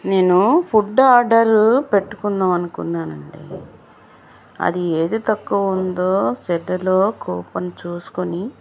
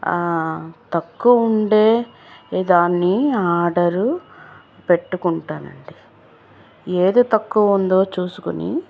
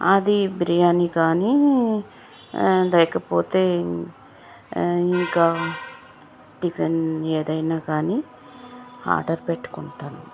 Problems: constant background noise